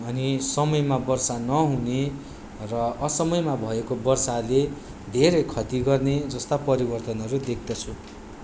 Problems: background sounds at intervals